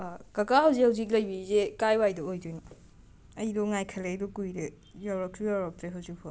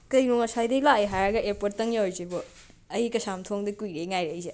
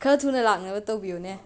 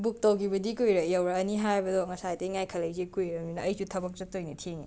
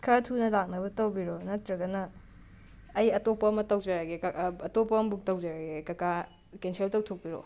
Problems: background sounds at intervals, background conversations at intervals